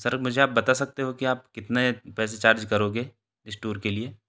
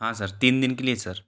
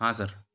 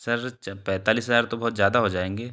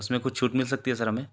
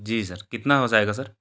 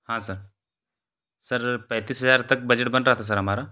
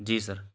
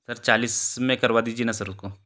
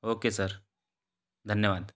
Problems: background conversations at intervals